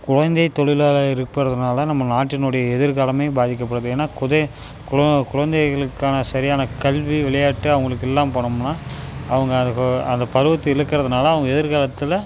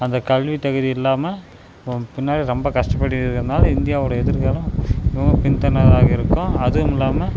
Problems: constant background noise